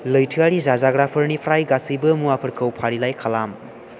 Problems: constant background noise